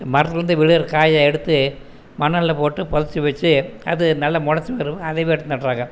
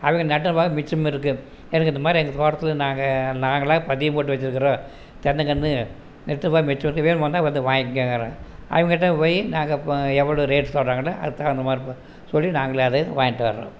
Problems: none marked